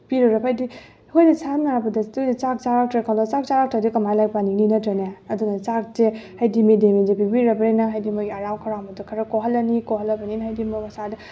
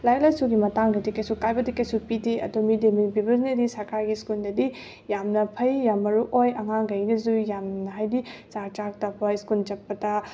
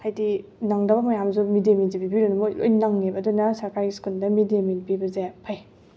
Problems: none marked